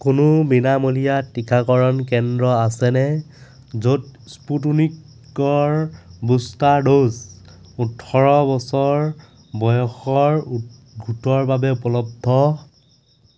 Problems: constant background noise